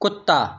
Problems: background sounds at intervals